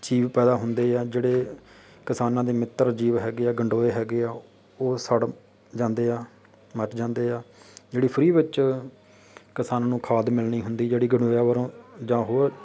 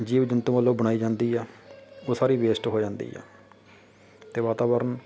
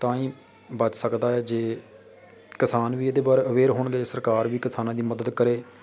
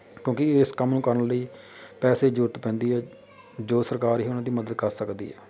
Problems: background sounds at intervals